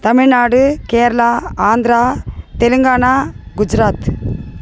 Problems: constant background noise